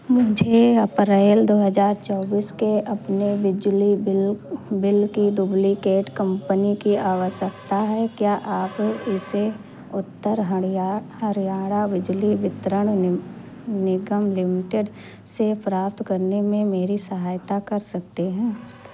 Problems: constant background noise